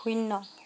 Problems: constant background noise